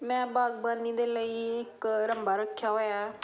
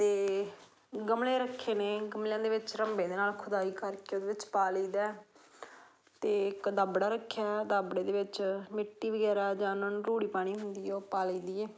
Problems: constant background noise